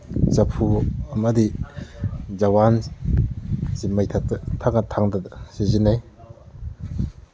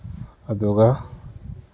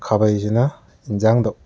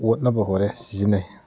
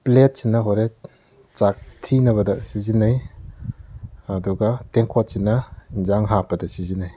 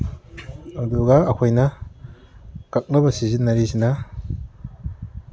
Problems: background conversations at intervals